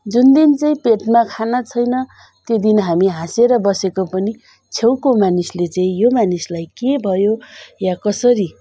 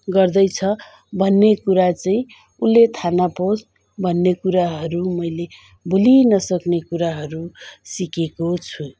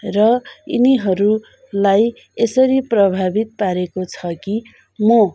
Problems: constant background noise